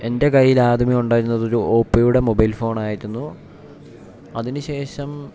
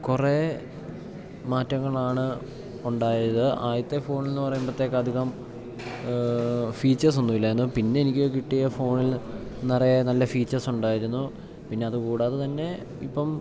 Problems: low volume